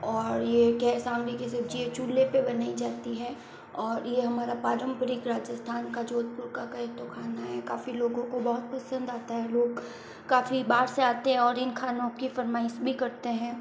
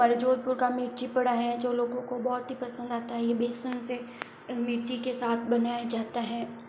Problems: constant background noise, low volume